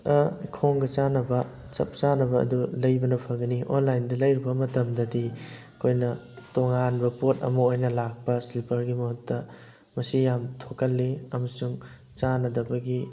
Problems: constant background noise